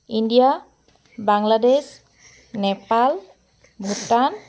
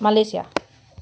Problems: constant background noise